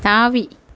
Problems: none marked